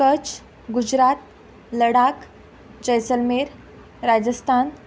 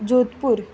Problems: background sounds at intervals